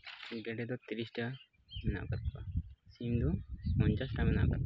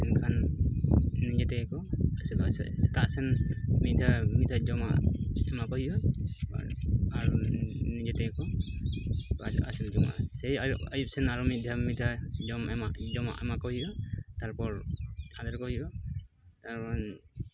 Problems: constant background noise